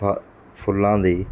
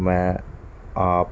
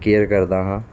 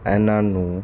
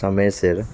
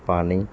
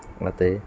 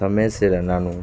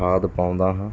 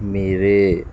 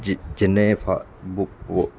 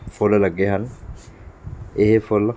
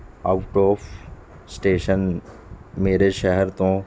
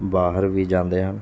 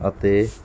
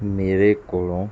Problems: constant background noise